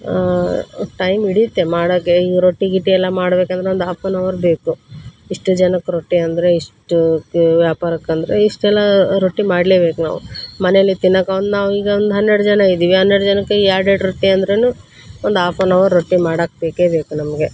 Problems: background sounds at intervals